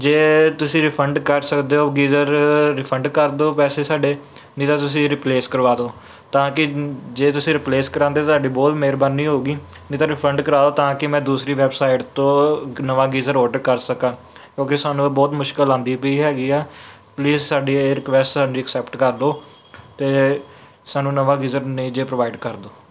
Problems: background sounds at intervals